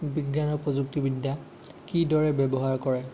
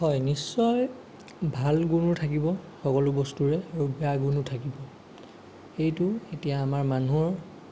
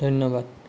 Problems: none marked